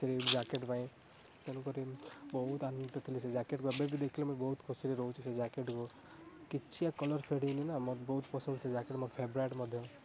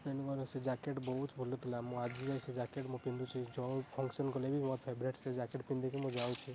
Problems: constant background noise